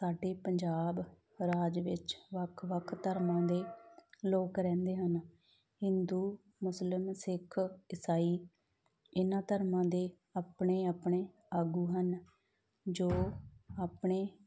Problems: background sounds at intervals